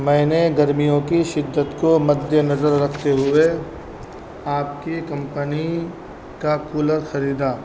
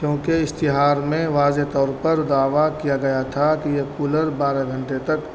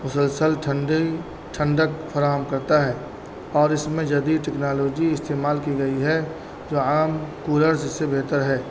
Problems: constant background noise